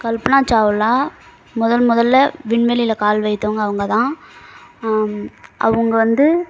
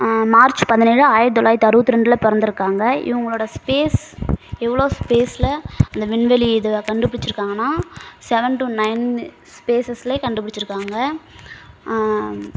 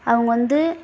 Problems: constant background noise